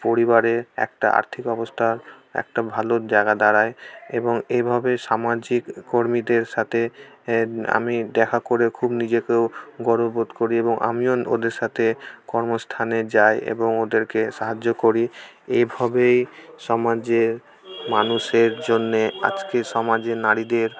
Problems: constant background noise, background conversations at intervals